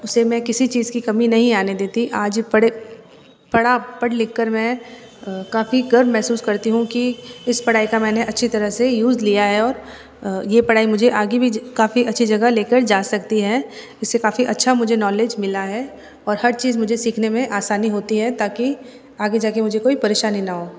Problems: background sounds at intervals